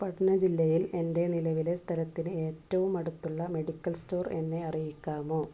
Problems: low volume